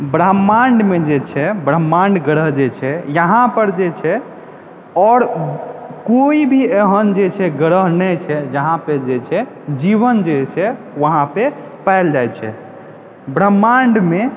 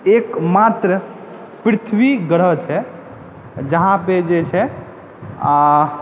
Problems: background sounds at intervals